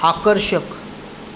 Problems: none marked